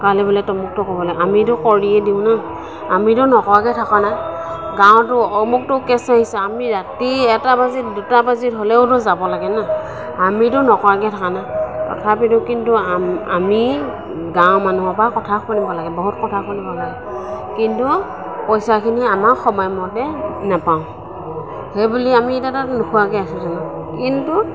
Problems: constant background noise, background conversations at intervals